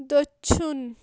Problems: constant background noise